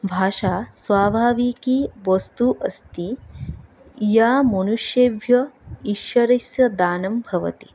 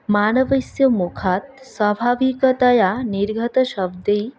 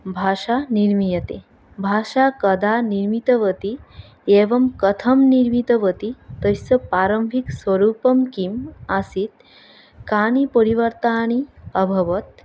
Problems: background sounds at intervals